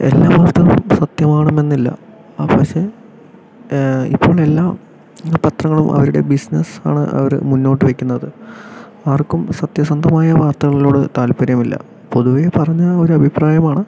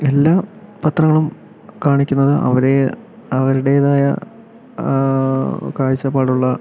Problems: background sounds at intervals, background conversations at intervals